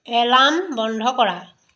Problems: none marked